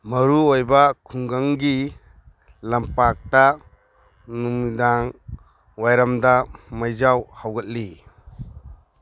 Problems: background sounds at intervals